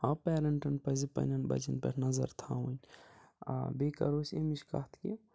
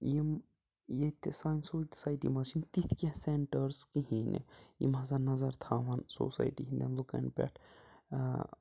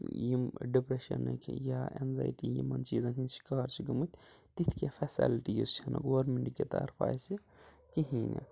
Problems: background sounds at intervals, low volume